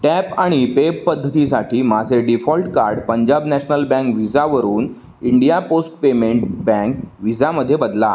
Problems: none marked